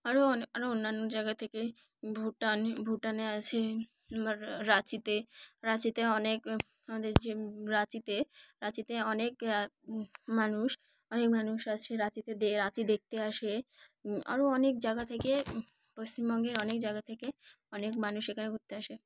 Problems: background sounds at intervals, background conversations at intervals